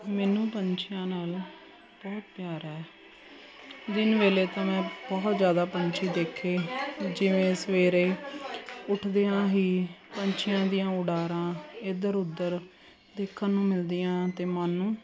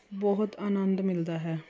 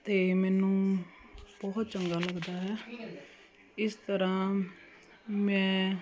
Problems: constant background noise